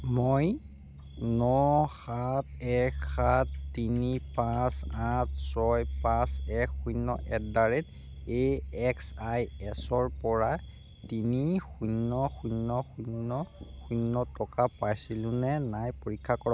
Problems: constant background noise, low volume